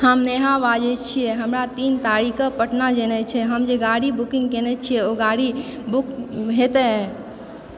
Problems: background conversations at intervals